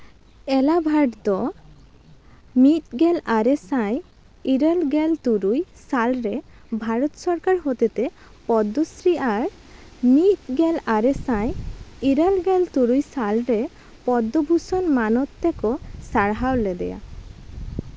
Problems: constant background noise